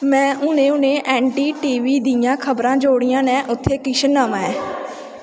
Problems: constant background noise